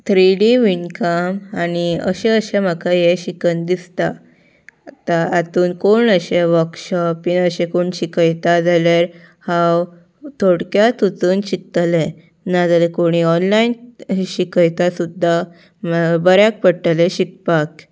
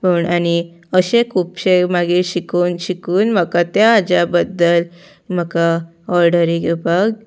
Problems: none marked